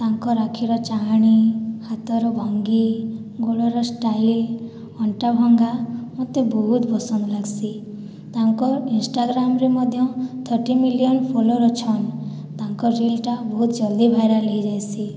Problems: none marked